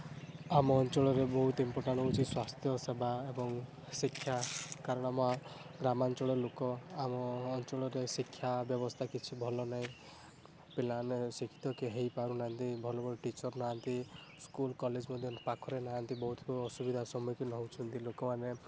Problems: background sounds at intervals